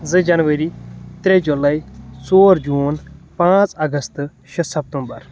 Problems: constant background noise